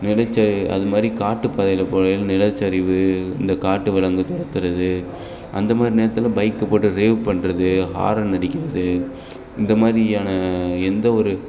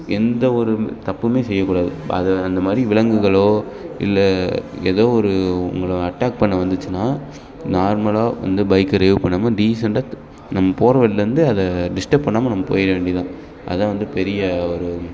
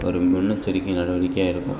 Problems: none marked